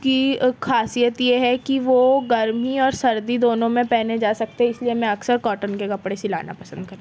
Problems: background sounds at intervals